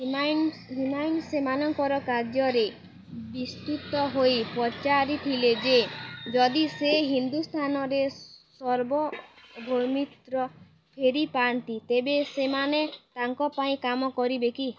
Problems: constant background noise